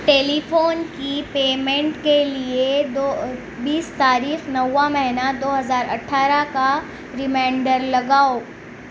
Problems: none marked